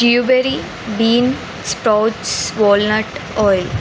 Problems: constant background noise